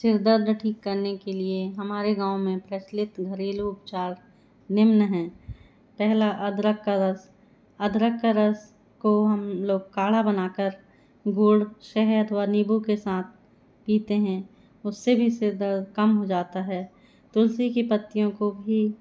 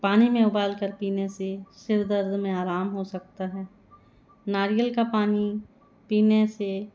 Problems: background sounds at intervals